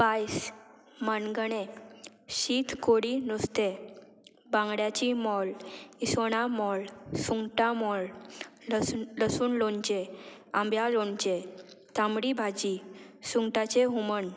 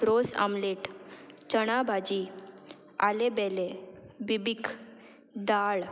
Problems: background sounds at intervals